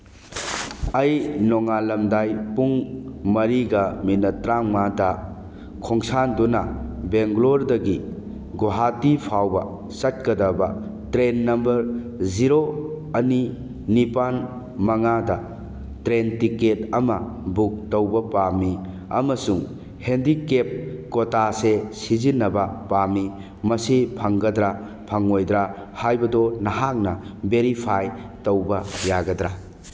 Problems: background sounds at intervals